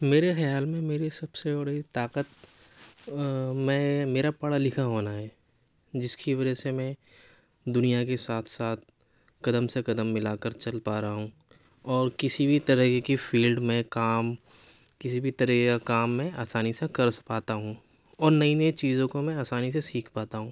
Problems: none marked